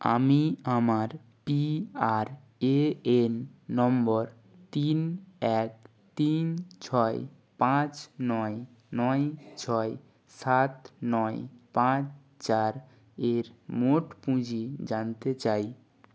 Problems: none marked